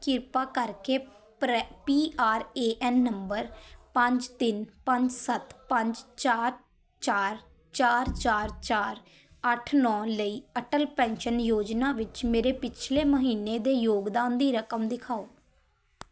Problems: background sounds at intervals, background conversations at intervals